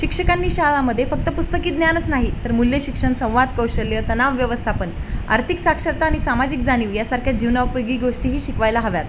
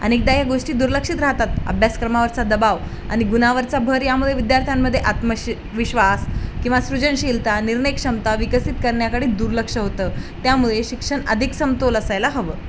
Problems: constant background noise